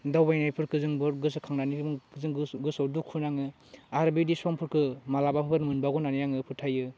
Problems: low volume